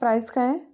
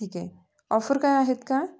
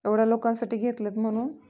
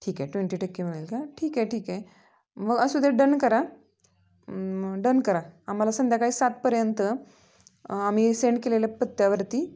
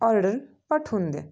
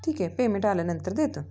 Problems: background sounds at intervals